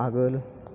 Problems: constant background noise